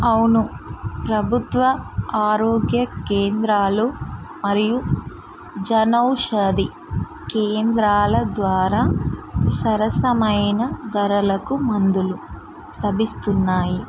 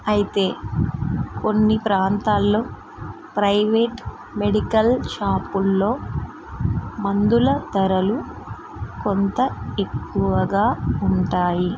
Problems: constant background noise